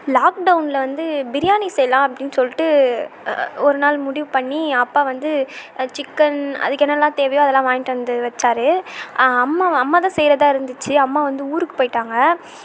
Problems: constant background noise